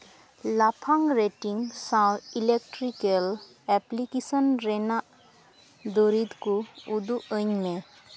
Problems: none marked